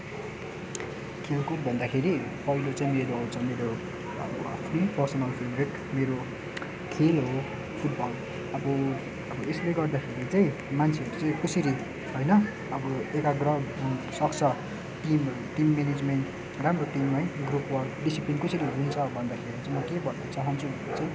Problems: constant background noise